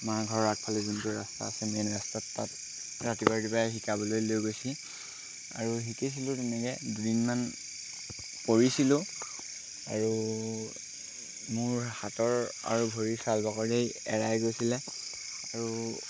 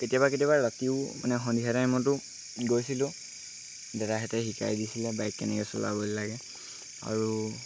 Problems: constant background noise